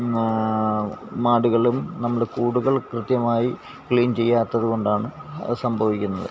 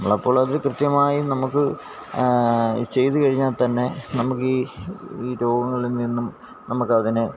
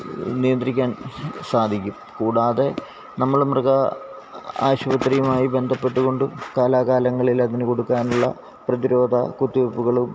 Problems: background sounds at intervals